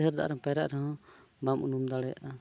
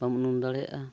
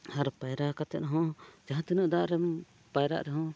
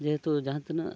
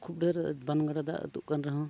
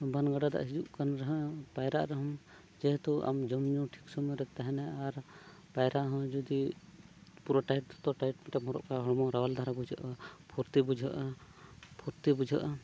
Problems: none marked